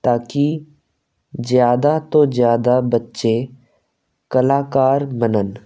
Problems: constant background noise